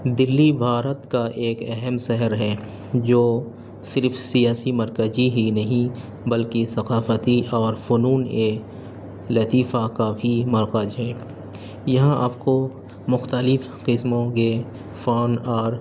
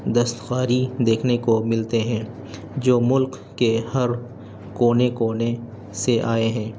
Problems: constant background noise